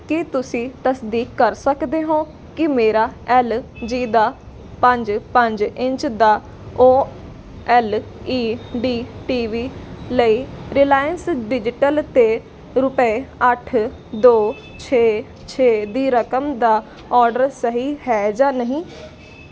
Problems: constant background noise